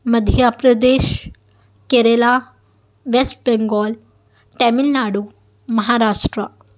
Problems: background sounds at intervals